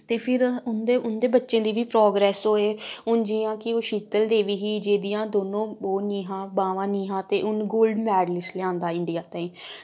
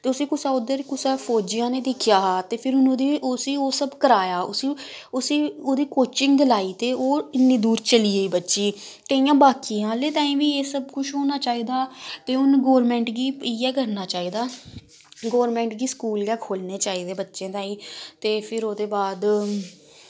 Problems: background sounds at intervals